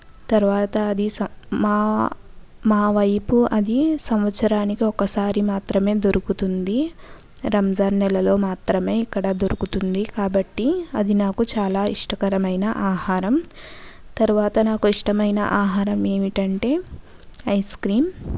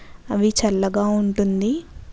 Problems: background conversations at intervals